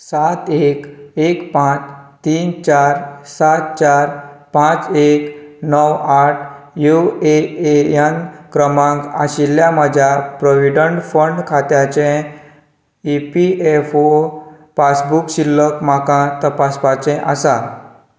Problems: background conversations at intervals